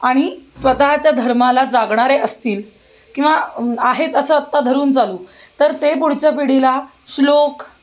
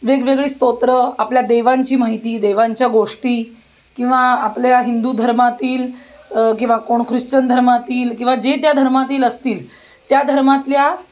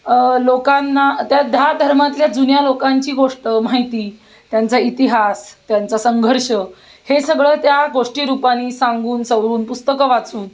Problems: constant background noise, background conversations at intervals